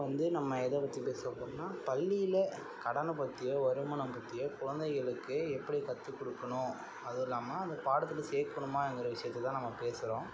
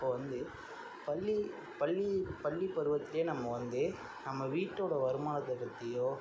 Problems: constant background noise, low volume